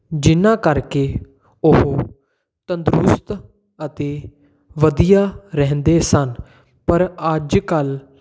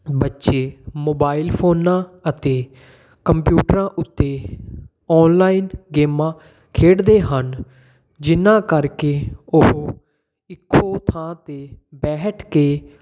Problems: none marked